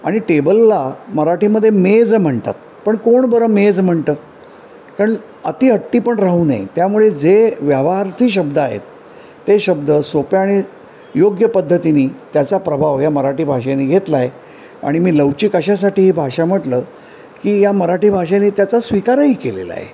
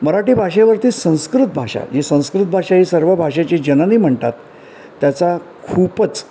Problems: none marked